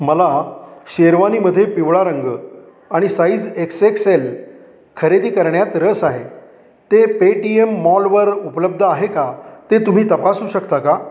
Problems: background sounds at intervals, echo